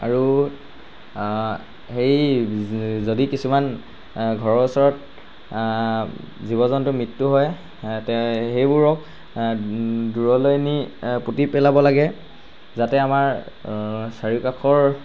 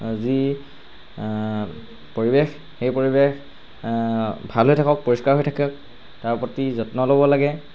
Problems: none marked